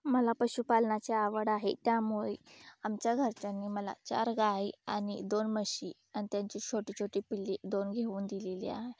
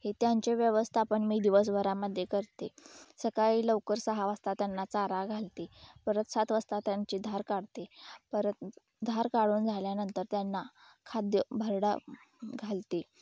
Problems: background sounds at intervals